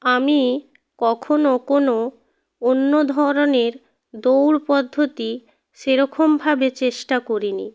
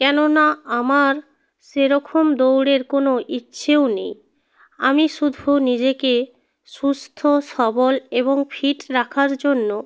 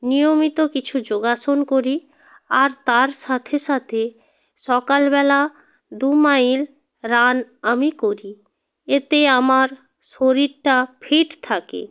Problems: none marked